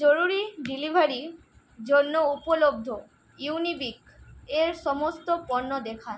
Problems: constant background noise